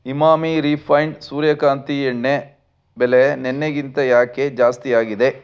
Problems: none marked